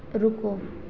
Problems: none marked